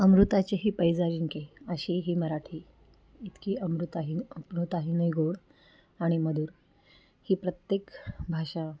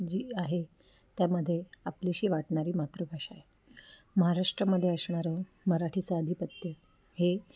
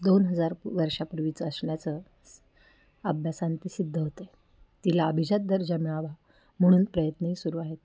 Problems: background sounds at intervals, low volume